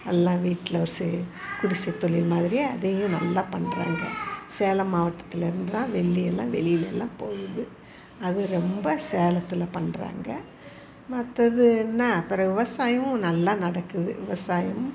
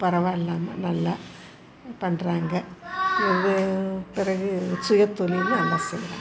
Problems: none marked